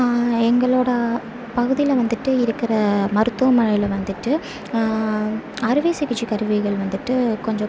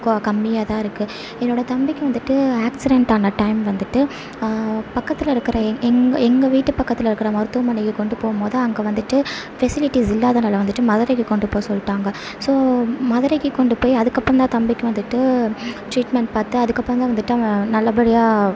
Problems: constant background noise